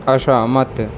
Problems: constant background noise